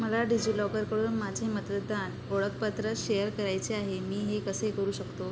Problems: none marked